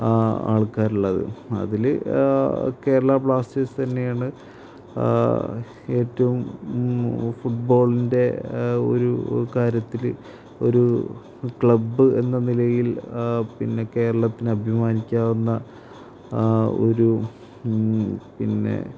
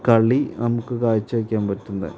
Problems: constant background noise, low volume